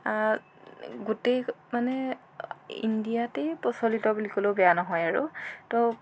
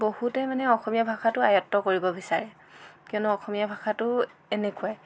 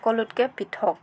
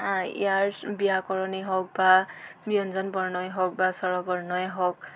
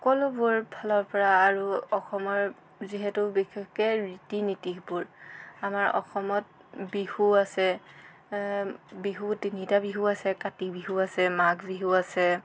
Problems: constant background noise